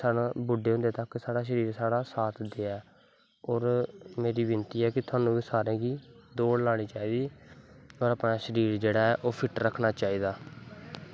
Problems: background sounds at intervals